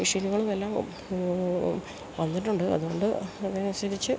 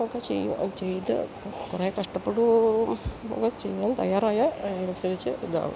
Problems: none marked